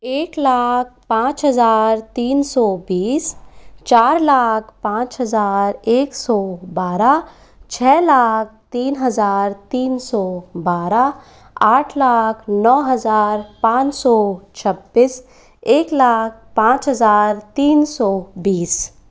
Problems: none marked